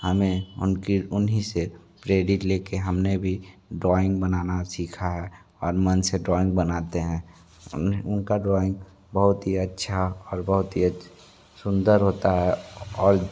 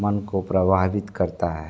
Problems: background sounds at intervals